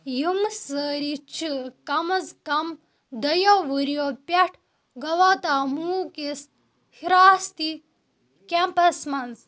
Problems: none marked